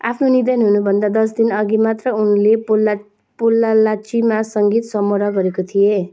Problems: background sounds at intervals